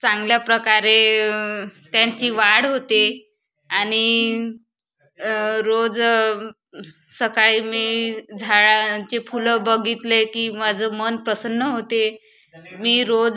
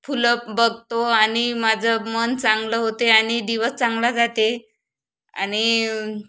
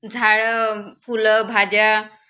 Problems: constant background noise, background conversations at intervals